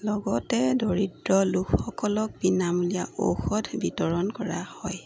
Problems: constant background noise